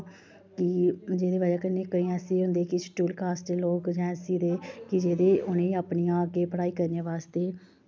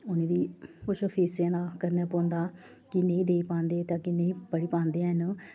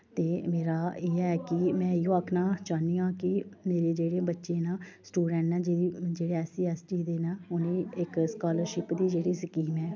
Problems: none marked